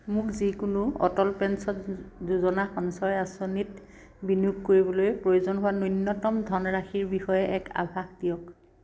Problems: constant background noise